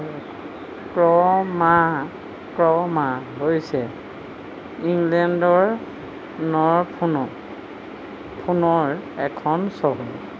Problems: constant background noise